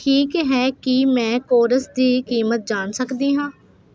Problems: constant background noise